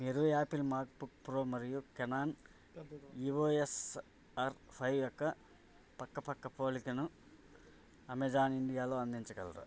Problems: none marked